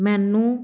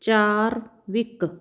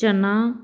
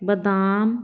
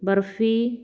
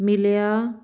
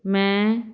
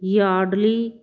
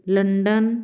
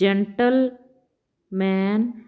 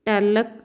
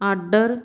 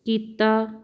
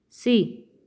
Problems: none marked